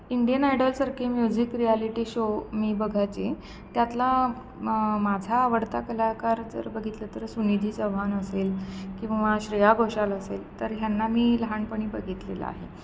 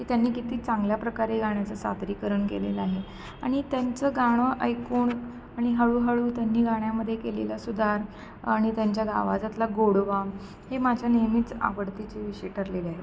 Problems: constant background noise